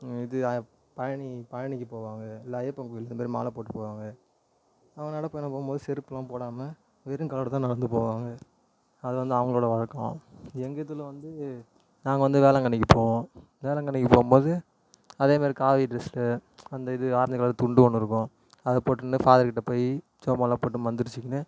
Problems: constant background noise